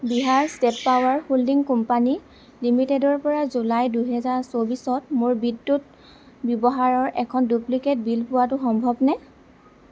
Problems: background sounds at intervals